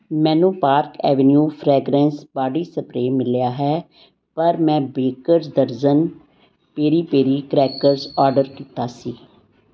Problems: background sounds at intervals